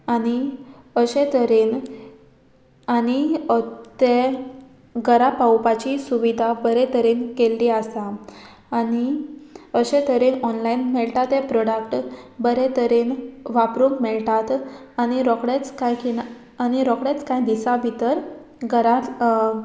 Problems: background sounds at intervals